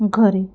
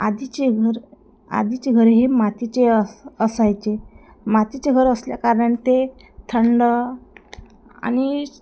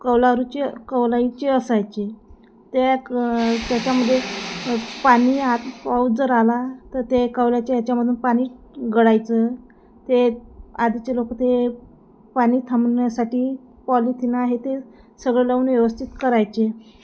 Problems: background sounds at intervals